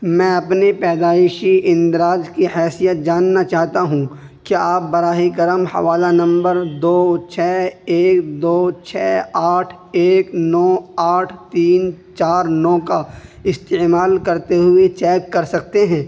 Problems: constant background noise